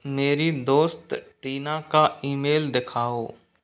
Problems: none marked